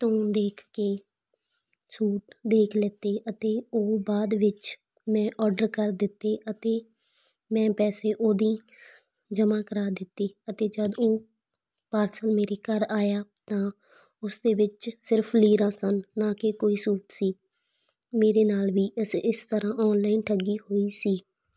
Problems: constant background noise